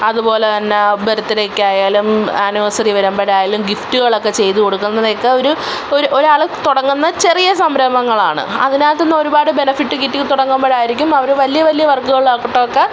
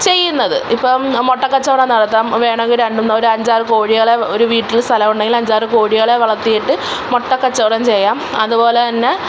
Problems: constant background noise